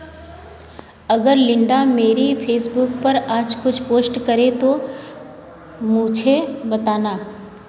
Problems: background sounds at intervals